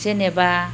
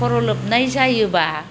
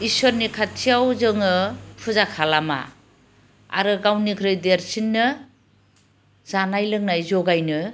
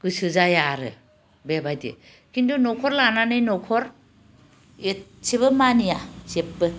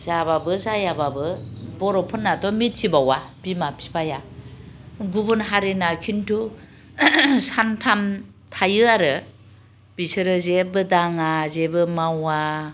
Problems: none marked